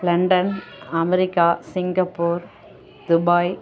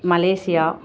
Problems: background conversations at intervals